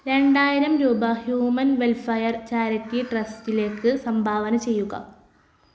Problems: constant background noise